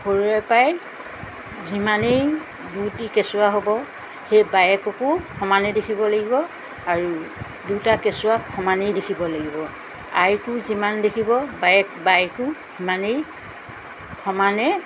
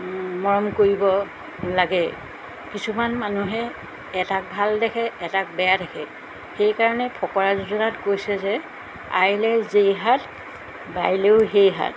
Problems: constant background noise